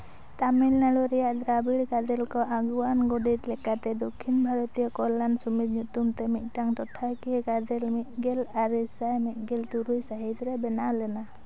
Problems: none marked